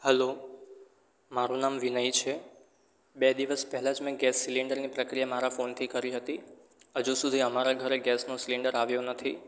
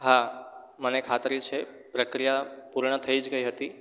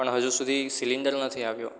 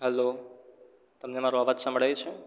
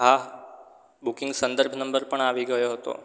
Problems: none marked